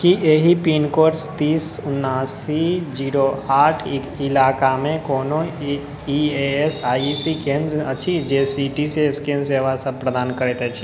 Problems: none marked